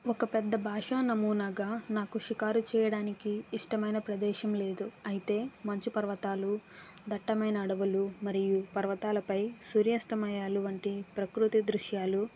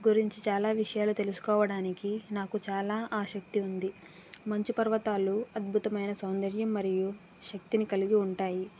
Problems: none marked